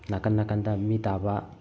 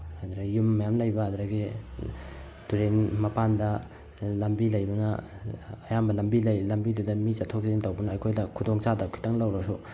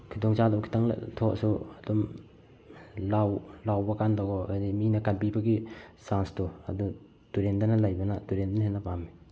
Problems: background sounds at intervals